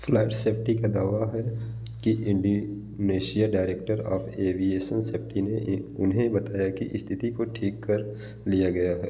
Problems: background sounds at intervals